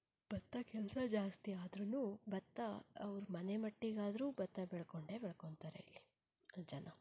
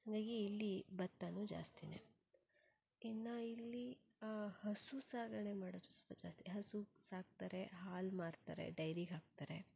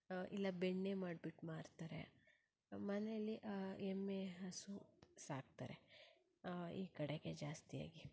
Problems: low volume